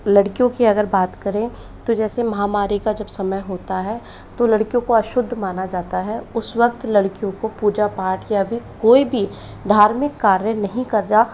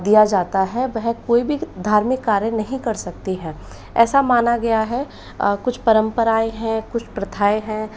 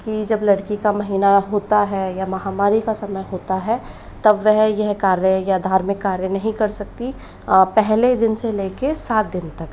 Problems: none marked